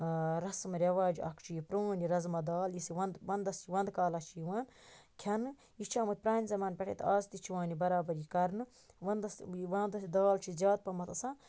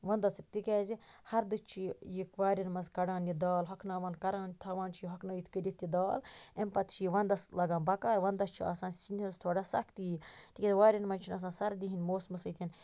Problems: constant background noise